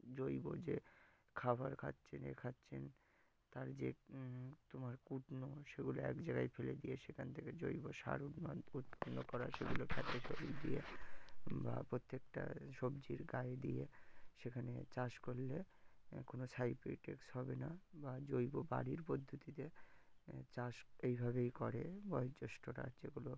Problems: background sounds at intervals